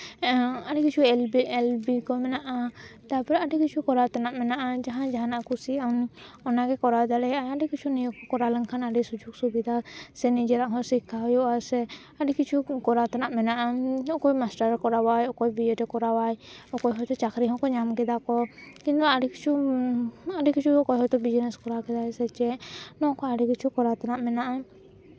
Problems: none marked